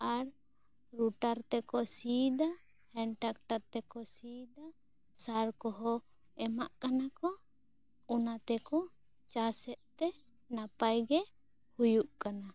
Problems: low volume